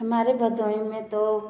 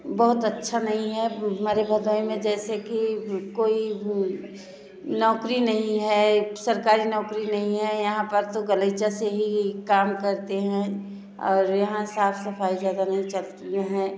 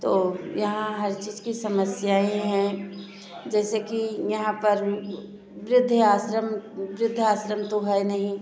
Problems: none marked